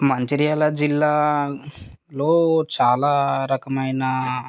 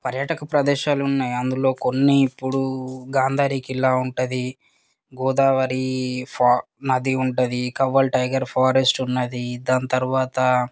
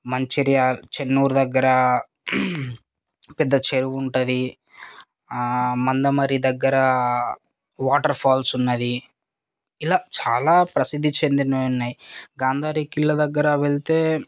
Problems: background sounds at intervals